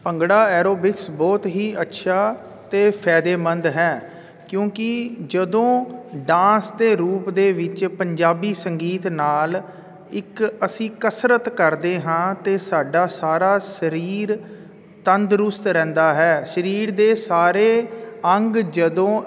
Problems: none marked